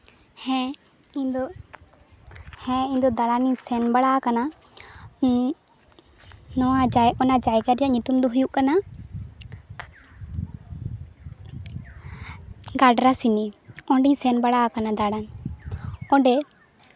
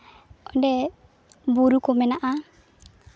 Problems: background sounds at intervals